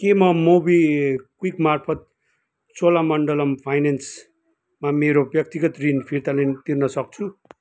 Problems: continuous background conversations